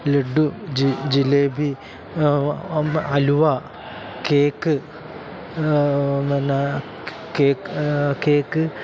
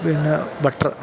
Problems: constant background noise